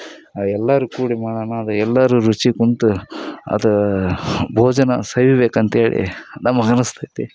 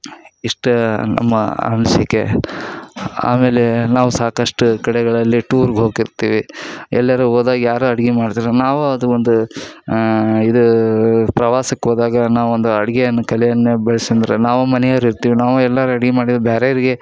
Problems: none marked